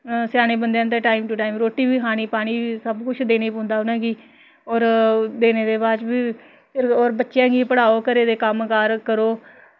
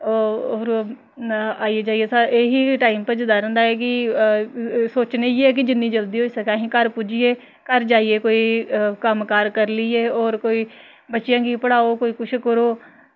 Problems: none marked